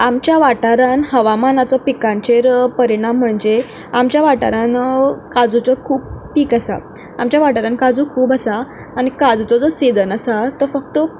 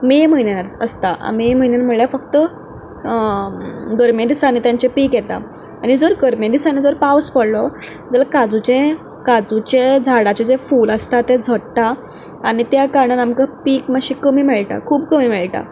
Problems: background sounds at intervals